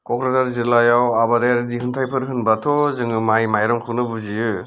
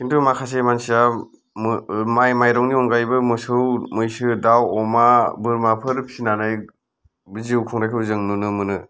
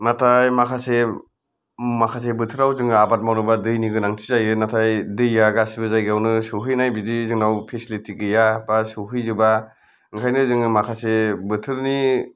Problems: none marked